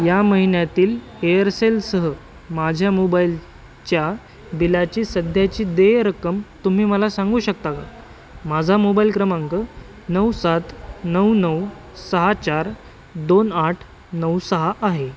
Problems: constant background noise, continuous background conversations